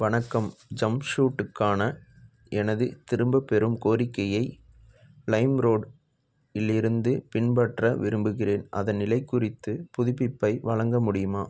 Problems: background sounds at intervals